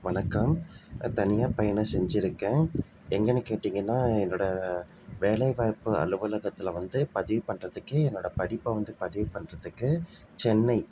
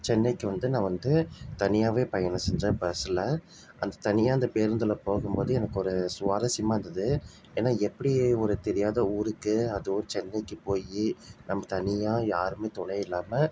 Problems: none marked